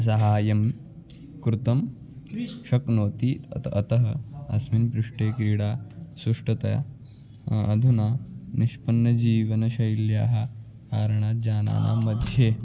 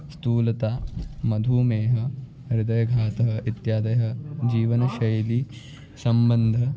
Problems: background sounds at intervals, continuous background conversations